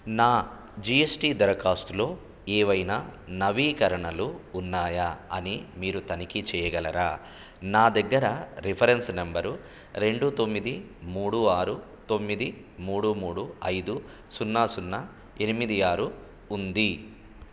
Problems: none marked